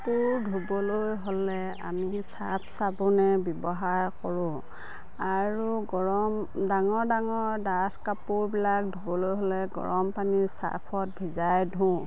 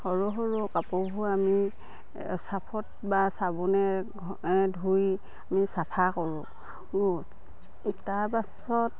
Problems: constant background noise, background conversations at intervals